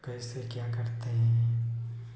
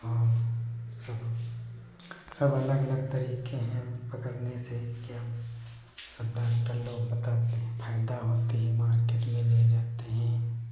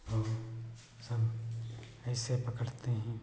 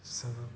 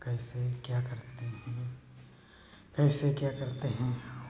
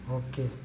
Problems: background sounds at intervals